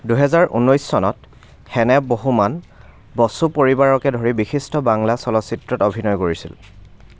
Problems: background sounds at intervals